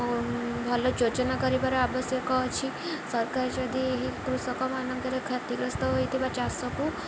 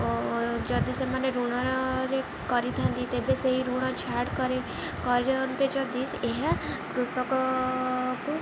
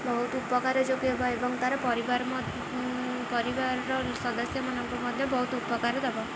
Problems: none marked